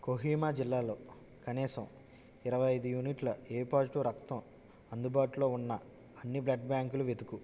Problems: none marked